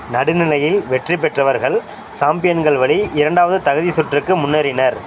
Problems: constant background noise